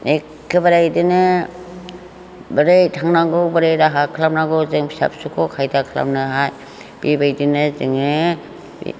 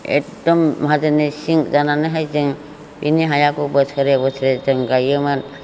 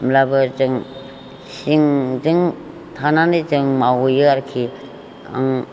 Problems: none marked